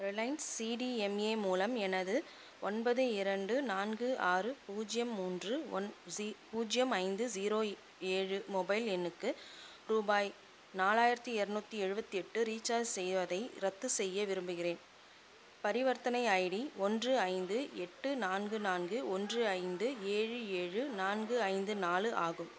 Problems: constant background noise, background conversations at intervals